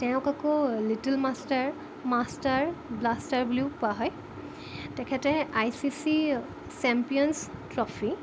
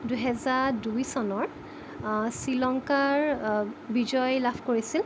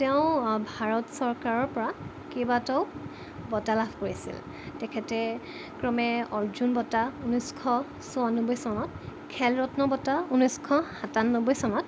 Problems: constant background noise